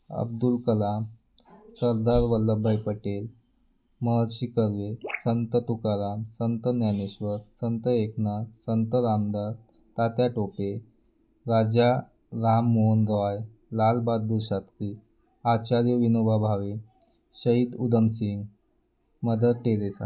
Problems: constant background noise, background conversations at intervals